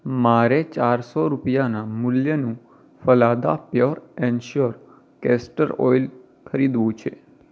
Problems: none marked